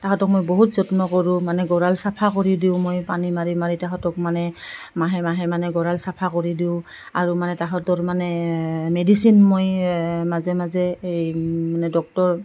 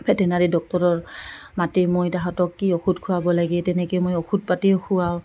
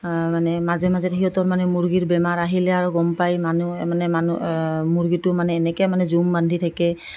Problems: none marked